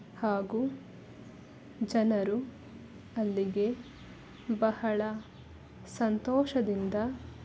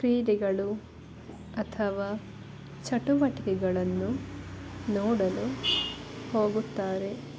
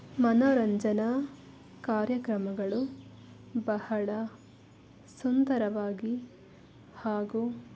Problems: background sounds at intervals